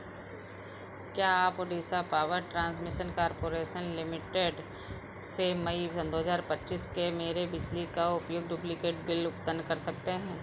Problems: background sounds at intervals